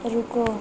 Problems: none marked